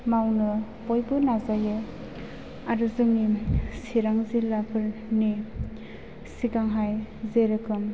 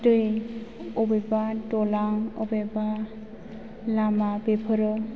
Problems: background sounds at intervals